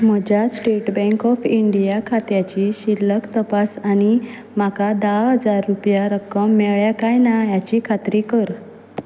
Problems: none marked